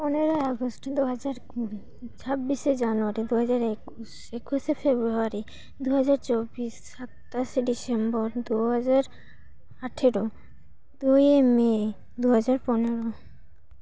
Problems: none marked